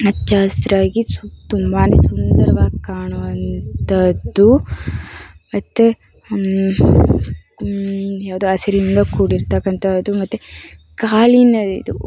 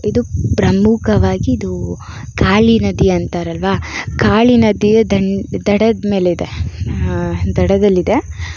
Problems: none marked